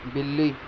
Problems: constant background noise